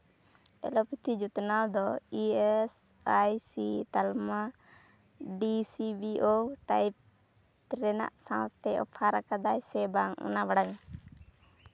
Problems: none marked